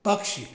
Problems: none marked